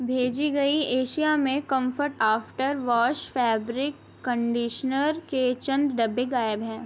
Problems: none marked